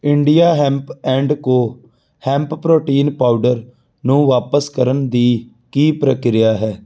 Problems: none marked